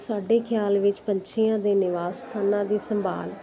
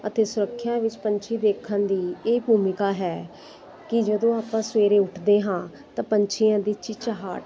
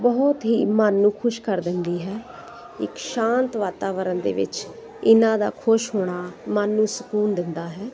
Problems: none marked